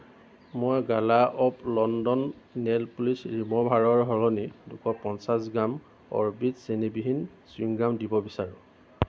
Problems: constant background noise